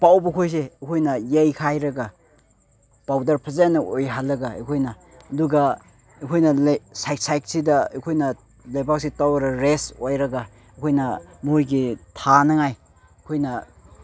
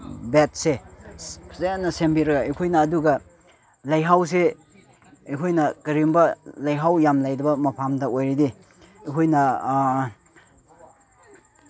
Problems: background conversations at intervals